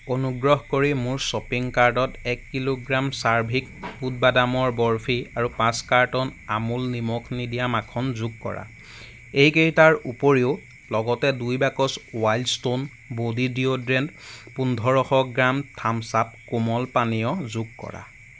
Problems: background sounds at intervals